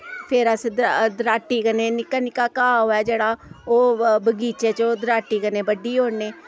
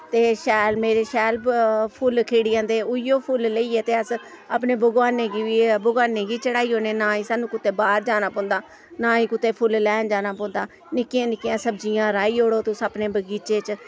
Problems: none marked